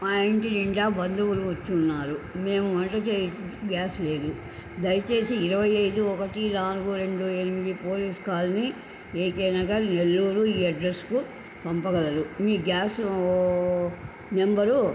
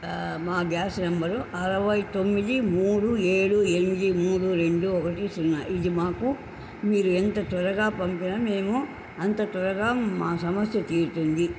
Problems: constant background noise